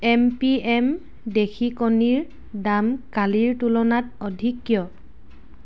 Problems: none marked